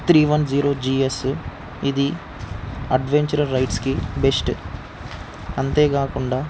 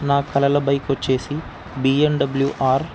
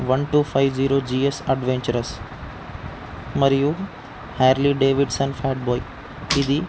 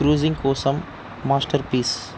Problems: constant background noise